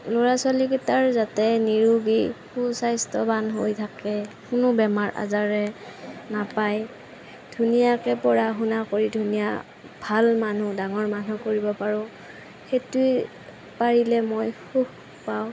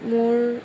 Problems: constant background noise